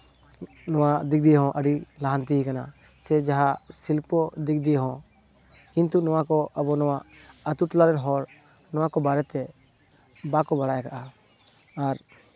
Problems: none marked